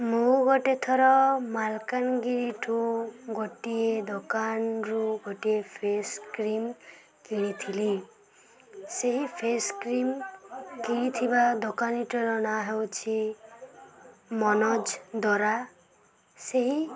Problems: constant background noise, continuous background conversations